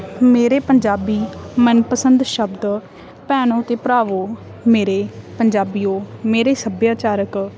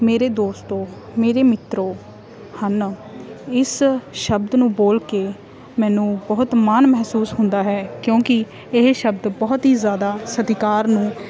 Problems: constant background noise, background conversations at intervals